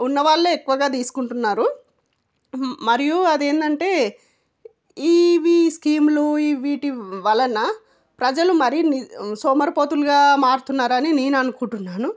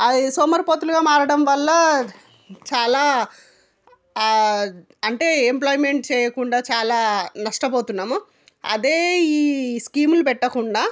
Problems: none marked